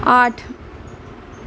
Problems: none marked